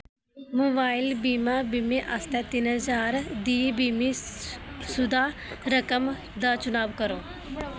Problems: constant background noise